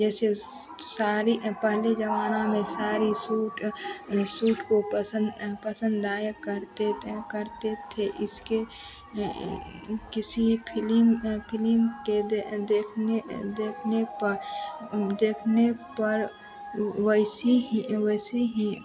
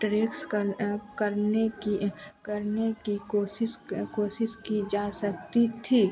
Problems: constant background noise